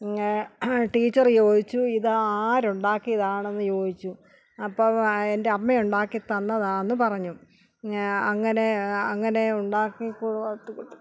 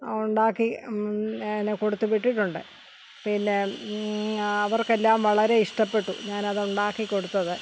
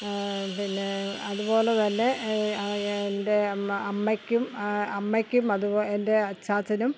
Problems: background sounds at intervals